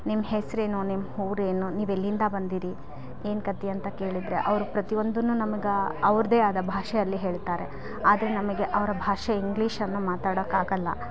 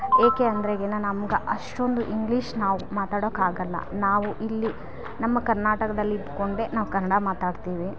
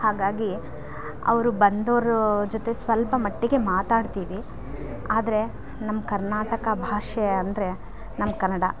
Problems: background sounds at intervals